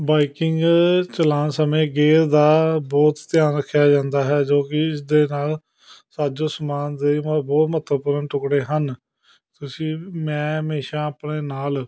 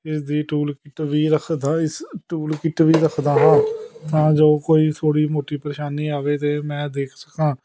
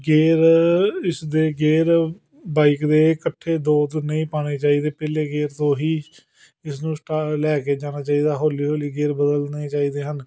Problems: background conversations at intervals